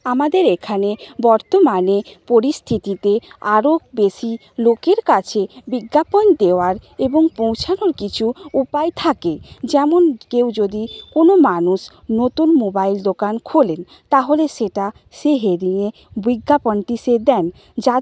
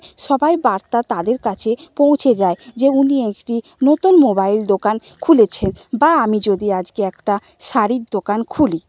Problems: none marked